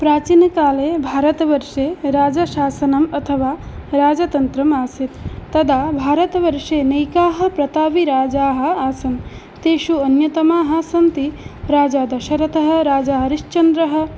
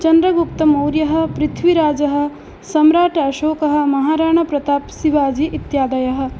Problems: constant background noise